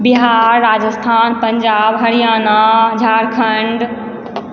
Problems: none marked